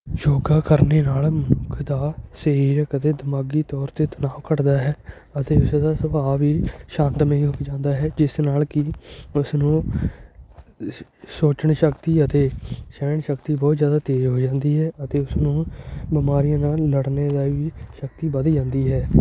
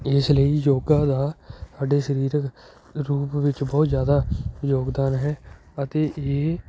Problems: constant background noise